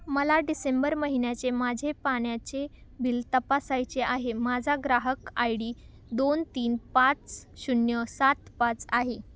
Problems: none marked